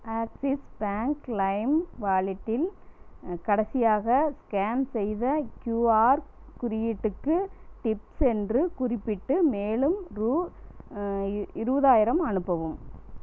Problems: none marked